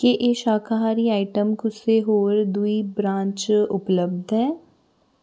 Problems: background sounds at intervals